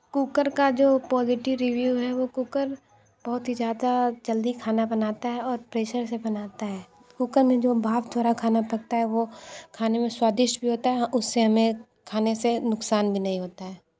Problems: none marked